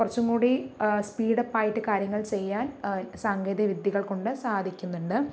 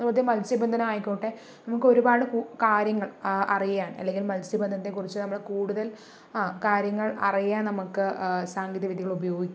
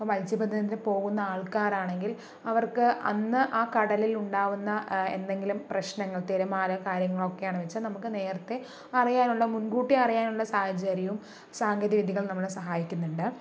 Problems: none marked